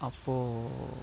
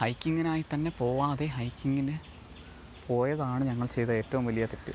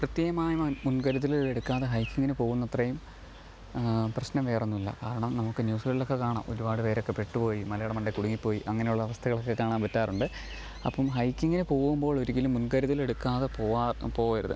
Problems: low volume